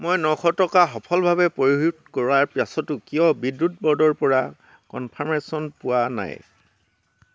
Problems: constant background noise